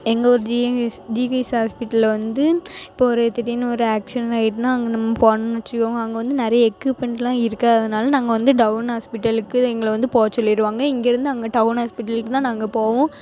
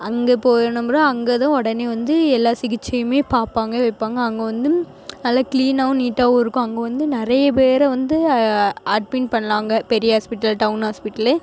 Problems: constant background noise